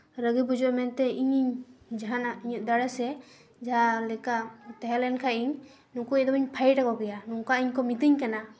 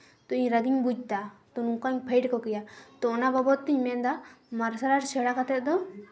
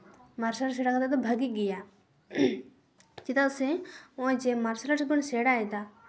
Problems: background sounds at intervals, background conversations at intervals